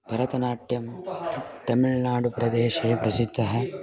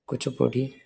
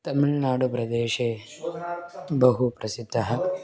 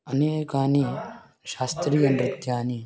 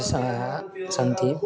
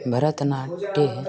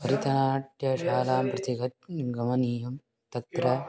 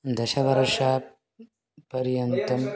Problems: continuous background conversations